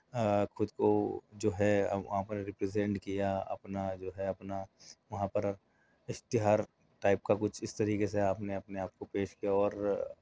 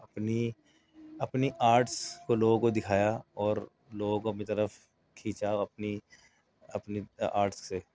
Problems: none marked